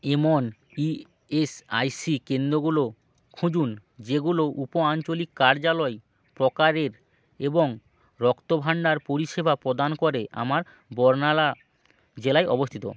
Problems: none marked